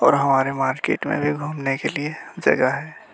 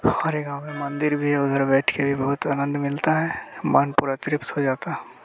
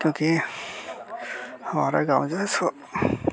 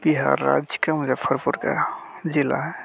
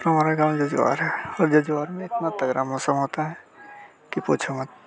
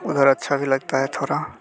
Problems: constant background noise, background conversations at intervals, low volume